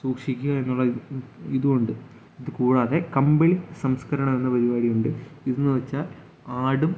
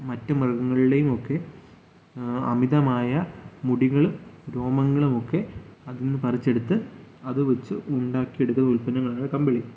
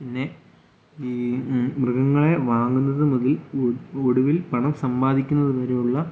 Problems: none marked